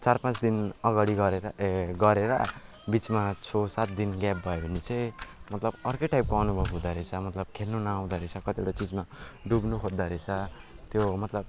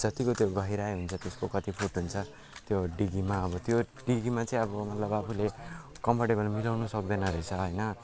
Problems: constant background noise